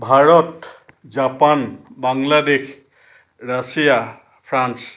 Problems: none marked